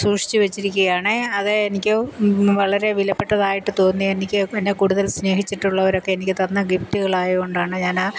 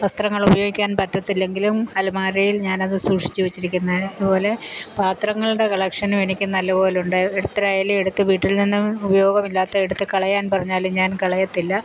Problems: constant background noise